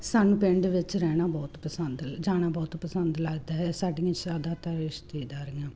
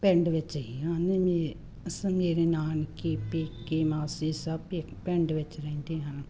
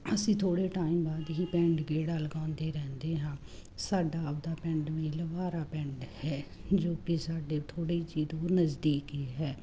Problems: constant background noise